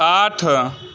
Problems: constant background noise